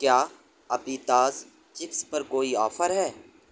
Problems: constant background noise